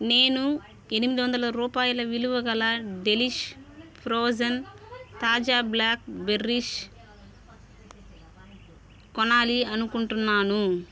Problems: continuous background conversations